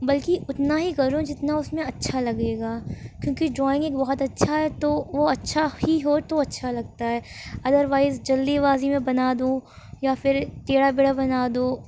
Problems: background sounds at intervals